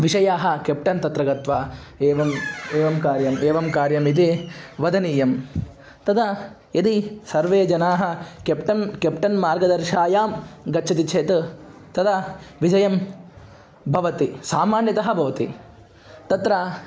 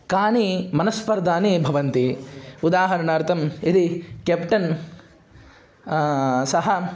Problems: background sounds at intervals